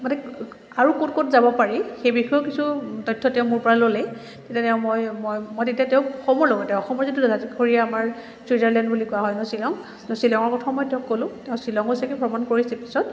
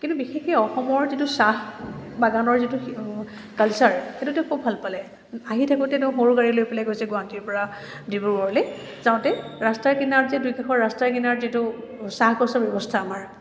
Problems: constant background noise